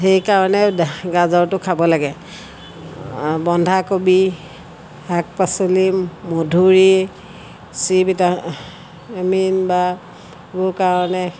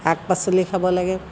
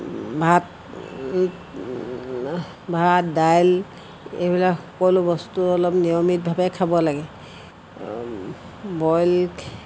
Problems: constant background noise